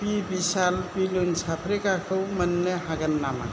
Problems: low volume